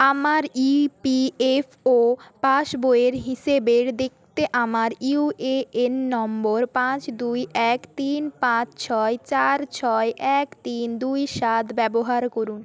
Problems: continuous background conversations